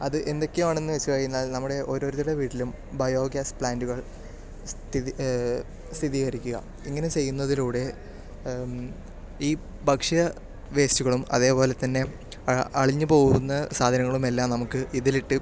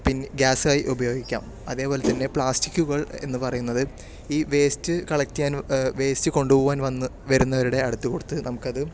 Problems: none marked